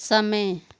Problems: constant background noise